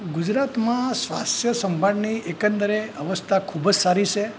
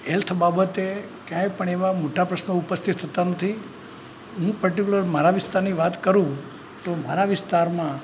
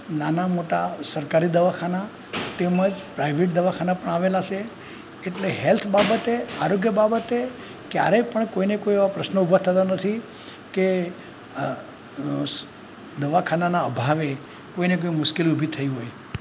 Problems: background sounds at intervals